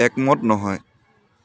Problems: constant background noise